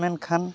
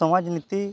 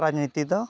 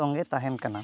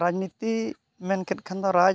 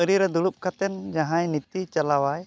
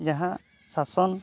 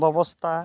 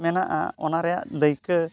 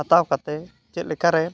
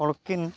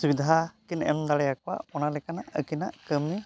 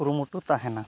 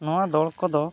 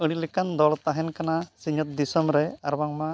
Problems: continuous background conversations